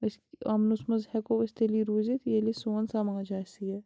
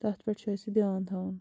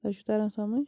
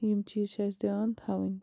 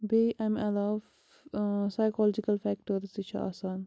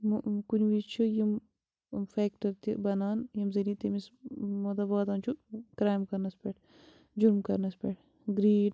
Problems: background sounds at intervals